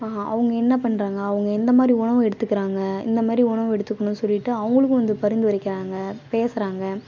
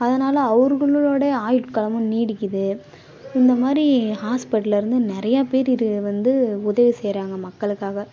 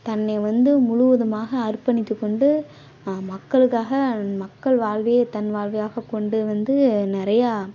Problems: background sounds at intervals